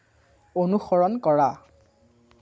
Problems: none marked